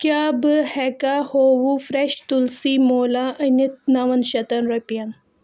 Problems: none marked